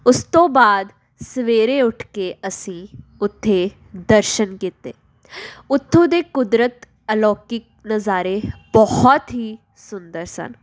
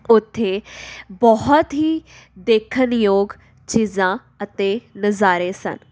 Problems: none marked